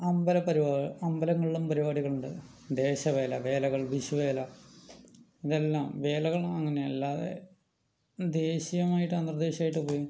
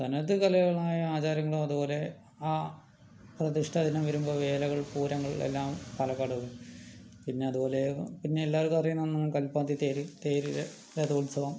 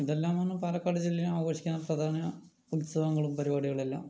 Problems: low volume